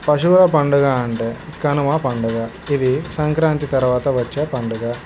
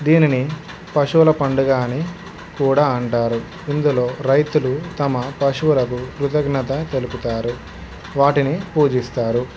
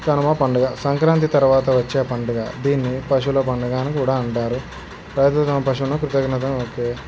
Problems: constant background noise